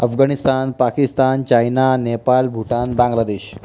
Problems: constant background noise